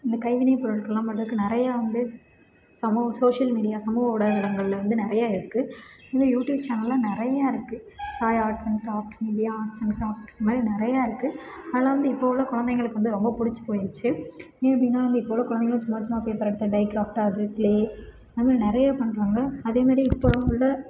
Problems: constant background noise